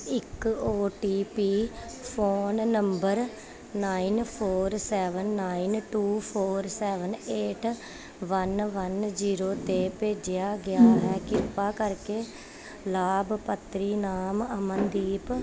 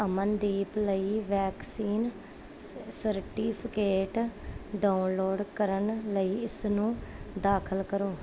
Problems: none marked